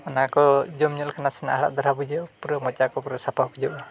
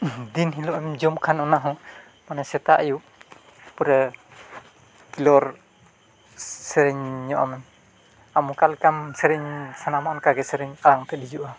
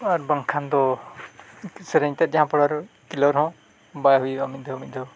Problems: constant background noise, low volume